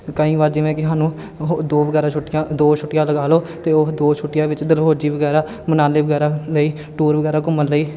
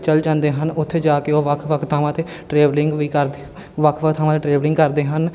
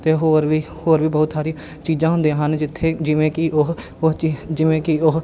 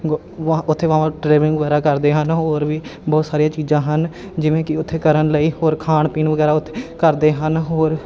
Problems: constant background noise